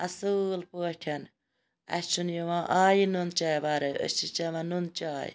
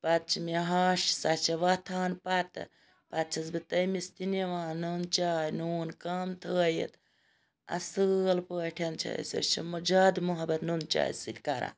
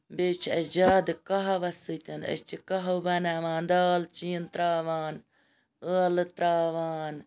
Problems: background sounds at intervals